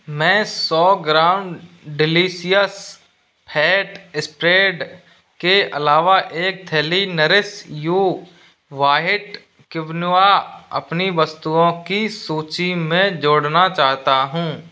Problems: background sounds at intervals